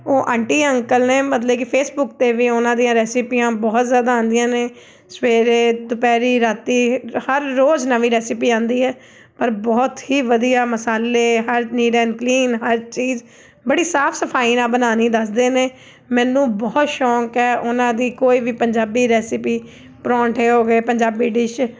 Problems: background sounds at intervals